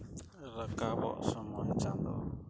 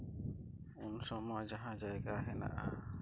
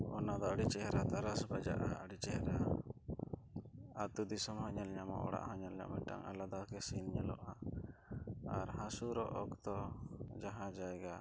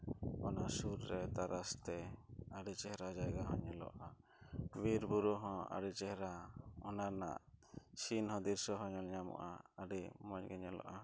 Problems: low volume